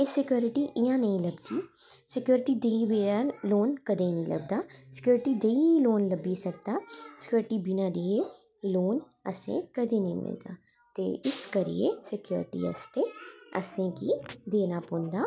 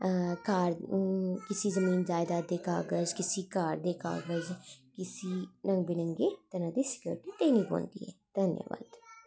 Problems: none marked